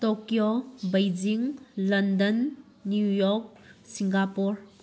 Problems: none marked